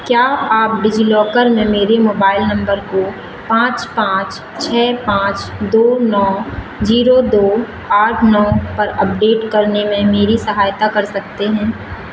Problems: constant background noise